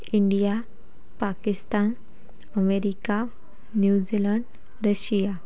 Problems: none marked